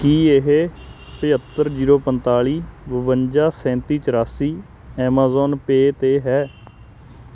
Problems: constant background noise